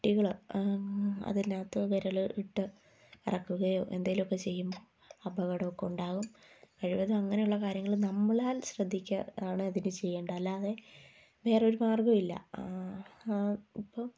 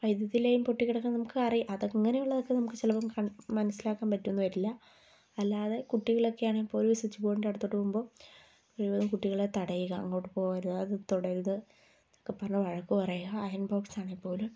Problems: low volume